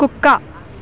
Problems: constant background noise